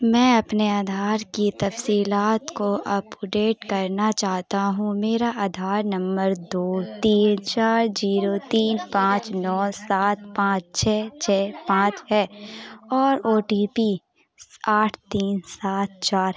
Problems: constant background noise, continuous background conversations